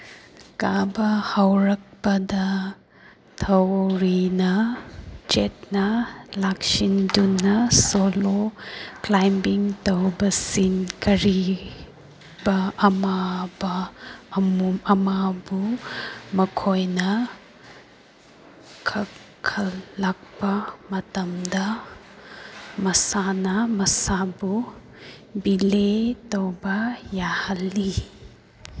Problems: background sounds at intervals